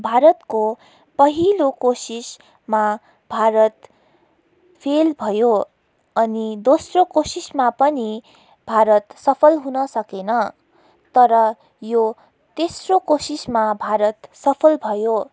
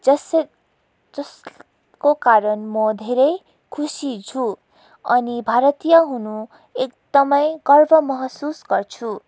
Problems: background sounds at intervals